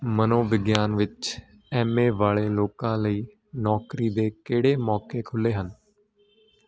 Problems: constant background noise